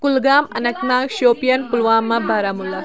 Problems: constant background noise